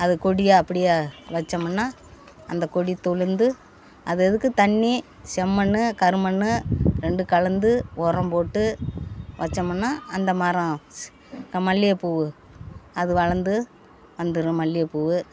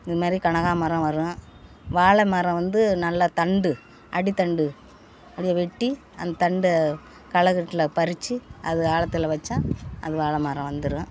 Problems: constant background noise, background conversations at intervals